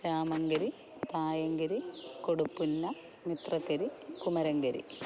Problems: constant background noise, low volume